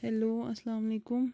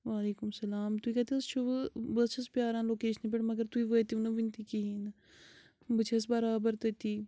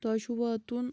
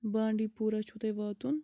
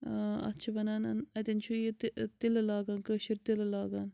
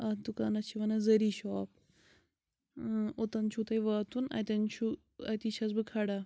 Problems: background sounds at intervals